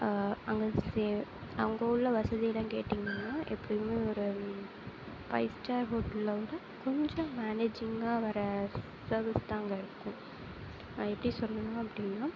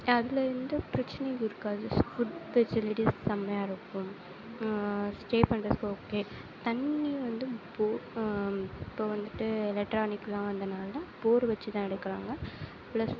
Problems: low volume